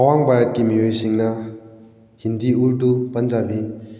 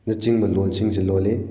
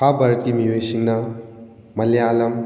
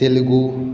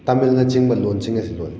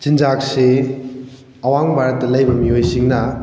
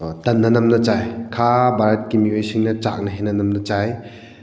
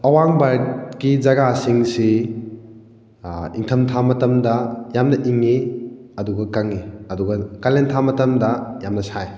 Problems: background conversations at intervals